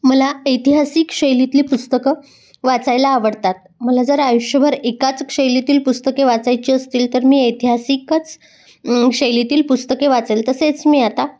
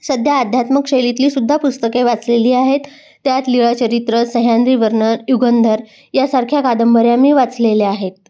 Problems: background sounds at intervals